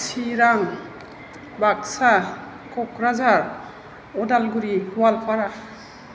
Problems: constant background noise